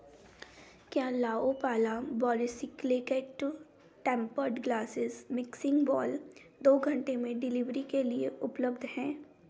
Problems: none marked